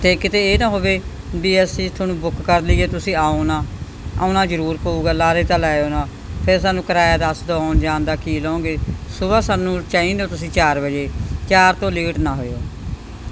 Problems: none marked